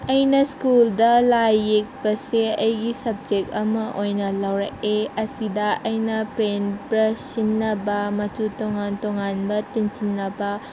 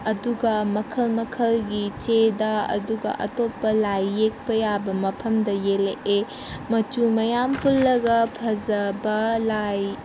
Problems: constant background noise